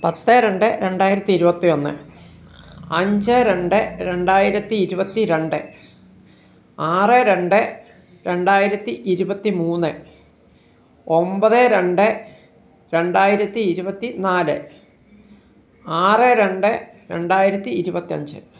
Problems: background sounds at intervals